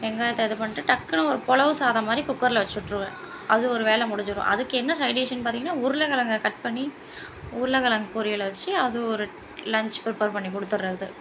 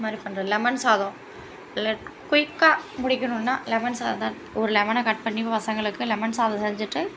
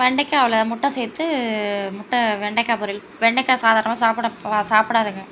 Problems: constant background noise, background conversations at intervals